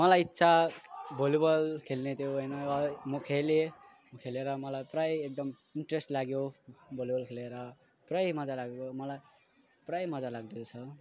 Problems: none marked